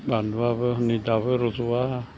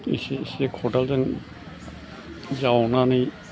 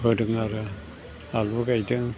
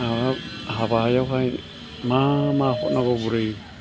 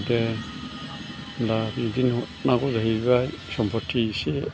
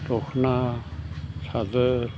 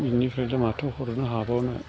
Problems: constant background noise